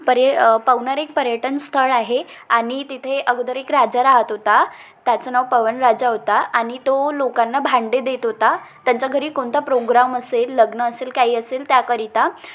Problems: constant background noise, background conversations at intervals, echo